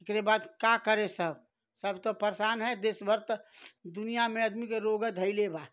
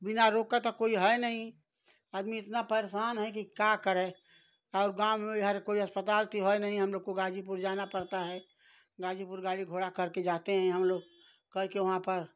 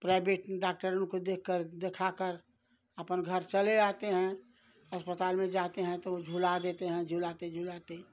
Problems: background sounds at intervals